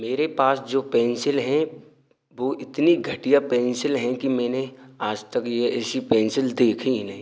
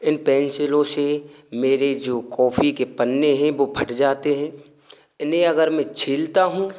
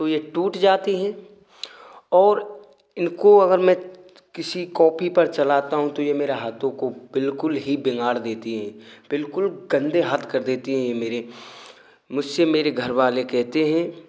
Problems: none marked